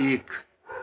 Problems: constant background noise